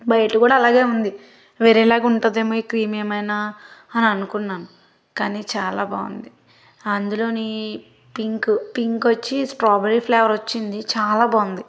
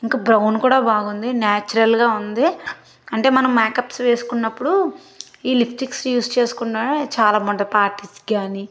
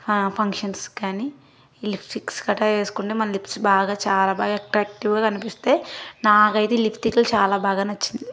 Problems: background sounds at intervals